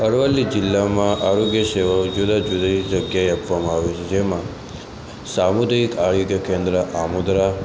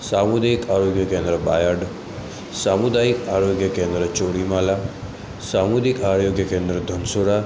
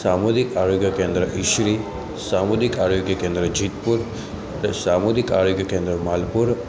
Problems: constant background noise